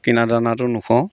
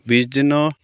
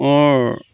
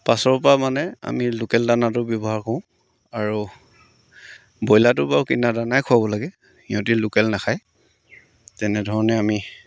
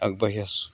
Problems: none marked